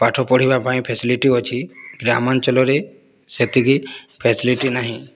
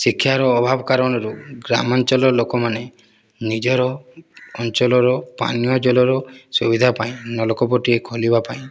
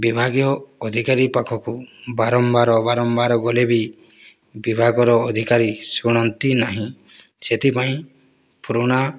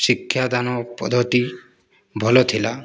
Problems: none marked